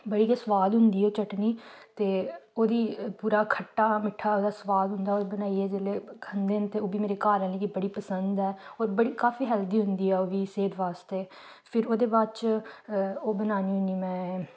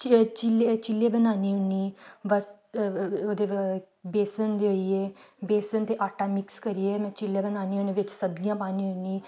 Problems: none marked